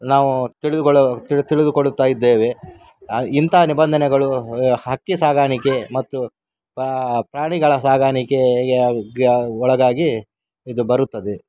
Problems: background sounds at intervals